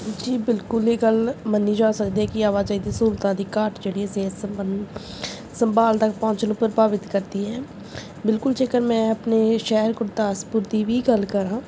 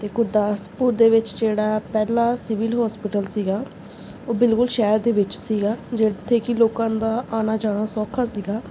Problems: none marked